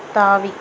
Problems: background sounds at intervals